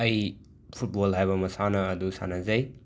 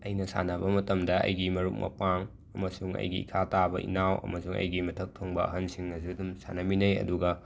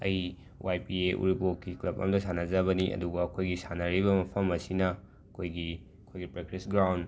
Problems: background sounds at intervals